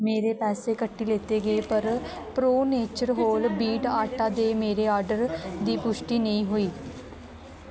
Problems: constant background noise